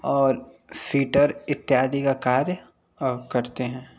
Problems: none marked